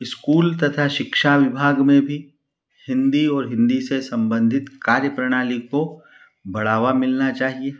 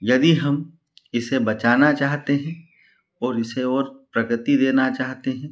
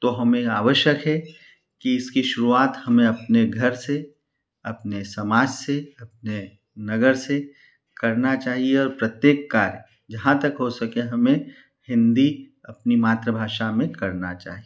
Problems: none marked